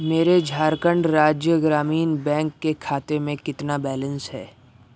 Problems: background sounds at intervals